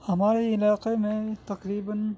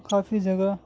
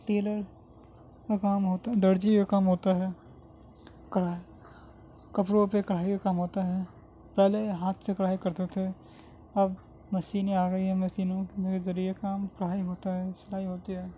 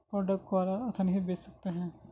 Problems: constant background noise